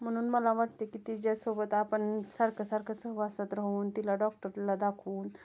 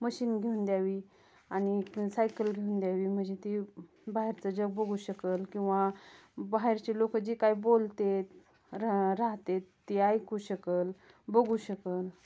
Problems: constant background noise, background conversations at intervals